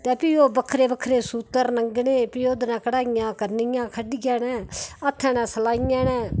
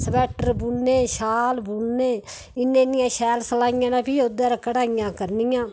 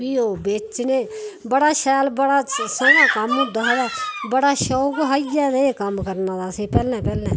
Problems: none marked